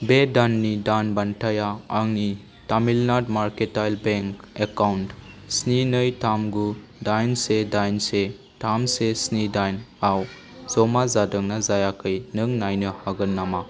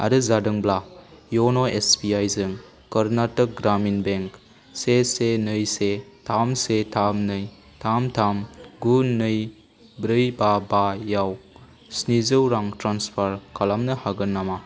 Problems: constant background noise